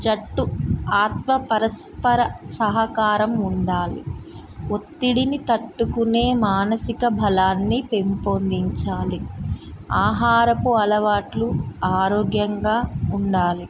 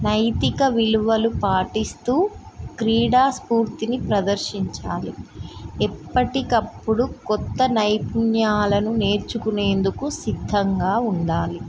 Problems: constant background noise